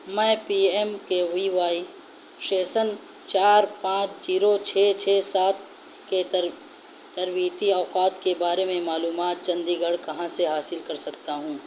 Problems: constant background noise